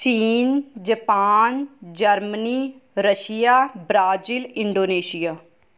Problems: none marked